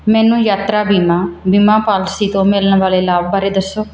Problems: none marked